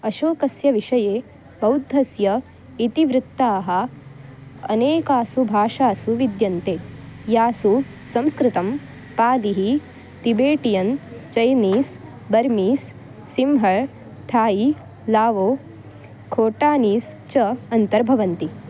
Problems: constant background noise